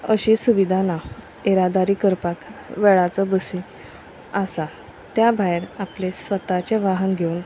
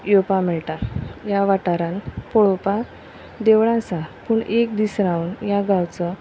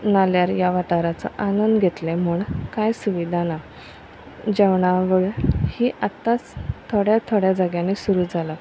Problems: constant background noise